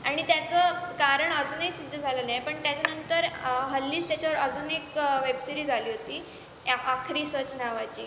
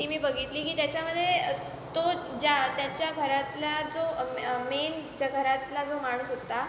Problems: constant background noise, background conversations at intervals, echo